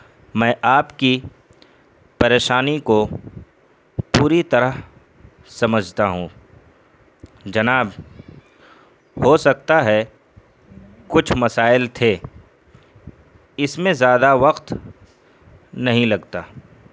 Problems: background sounds at intervals